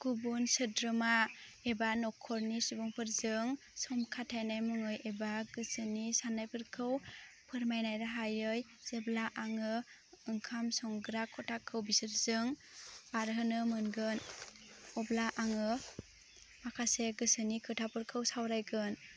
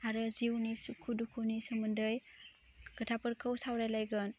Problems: none marked